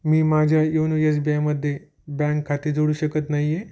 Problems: none marked